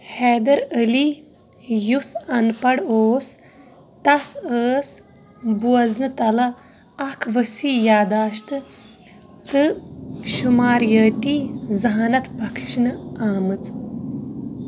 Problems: constant background noise, background conversations at intervals